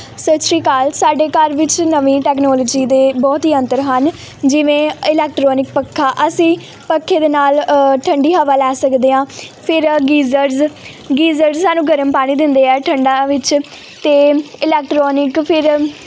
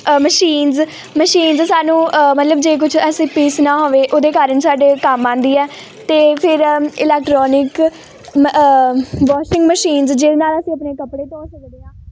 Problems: background sounds at intervals